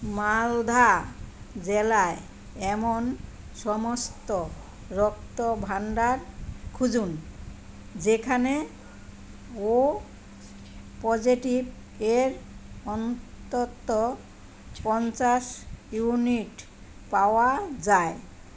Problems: constant background noise, background conversations at intervals